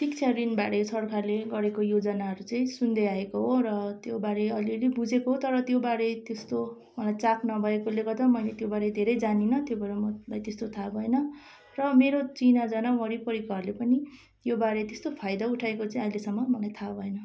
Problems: constant background noise